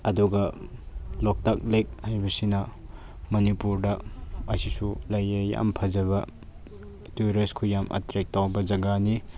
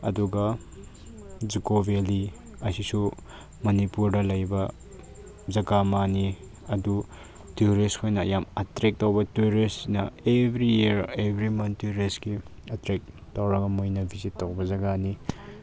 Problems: none marked